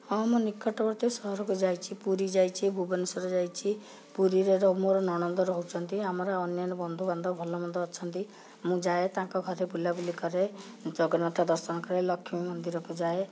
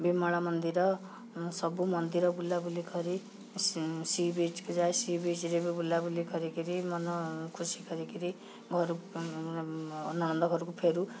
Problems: background sounds at intervals